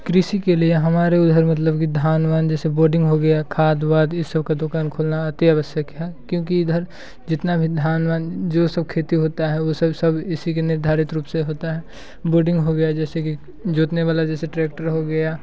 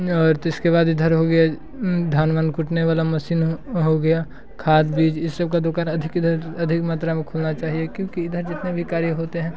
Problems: constant background noise